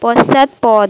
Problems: background sounds at intervals